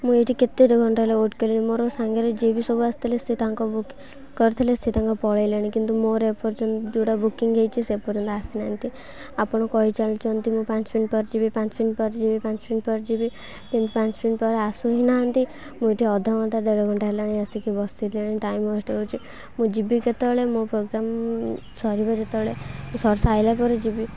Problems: low volume